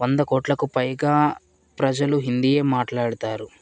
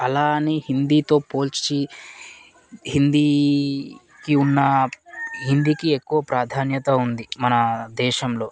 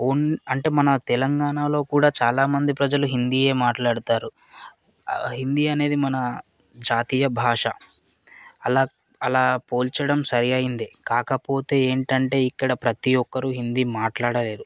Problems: constant background noise, background conversations at intervals